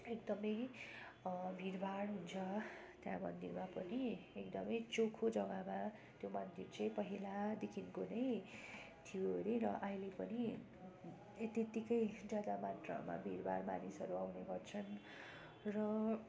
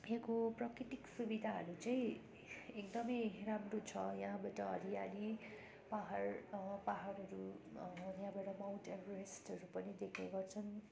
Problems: constant background noise